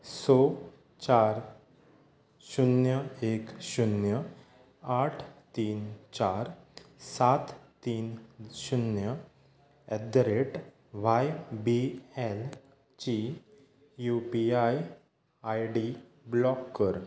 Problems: background sounds at intervals